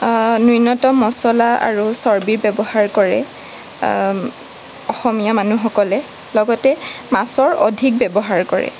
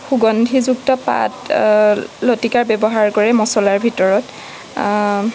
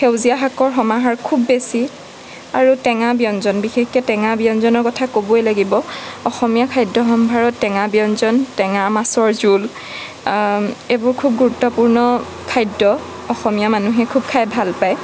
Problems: background sounds at intervals